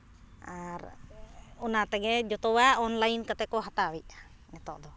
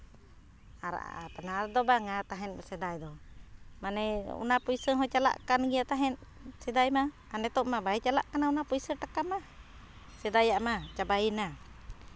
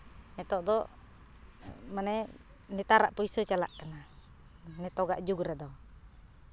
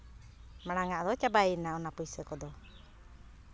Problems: none marked